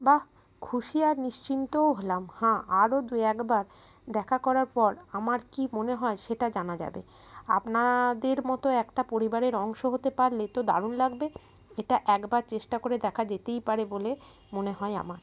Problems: none marked